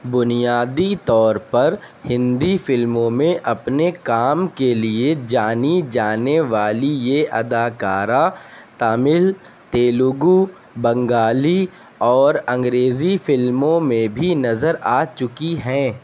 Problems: constant background noise